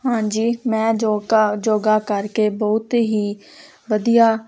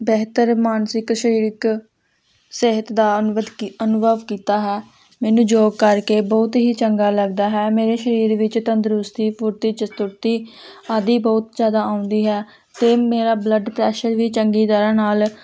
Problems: constant background noise